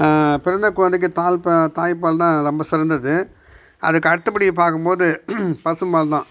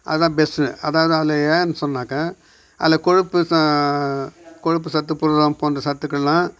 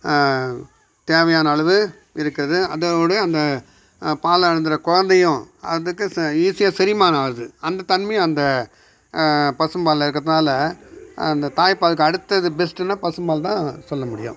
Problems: background sounds at intervals